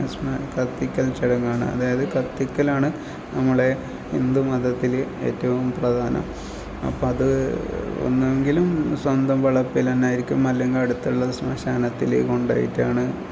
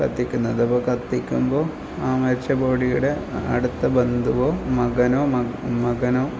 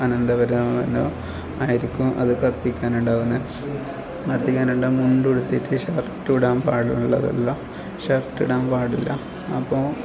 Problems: low volume